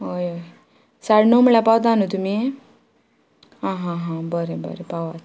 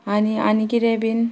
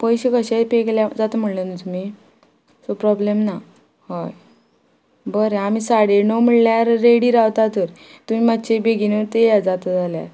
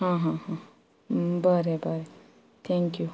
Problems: constant background noise